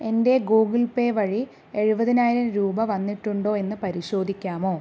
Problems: none marked